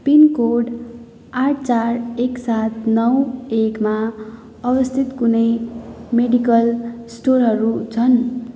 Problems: background sounds at intervals